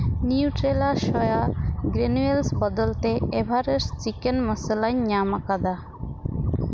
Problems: constant background noise